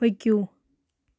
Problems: constant background noise